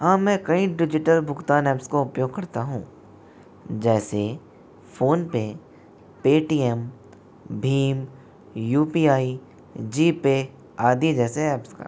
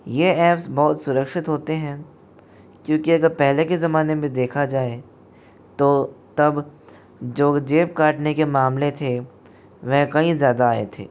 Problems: constant background noise